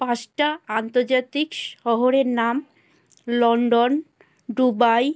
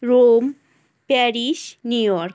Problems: constant background noise